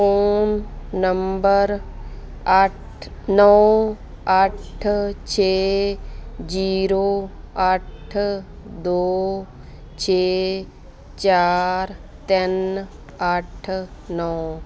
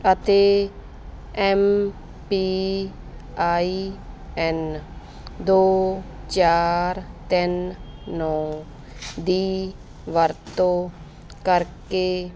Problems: background sounds at intervals